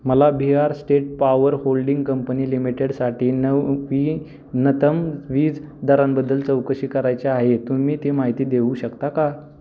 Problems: constant background noise